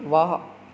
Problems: background sounds at intervals